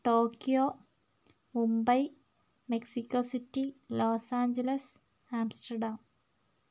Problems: none marked